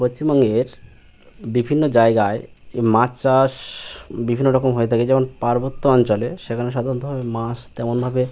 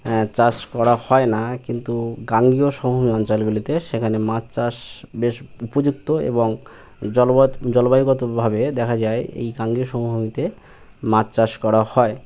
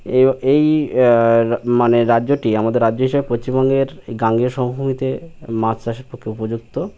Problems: background sounds at intervals